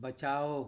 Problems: constant background noise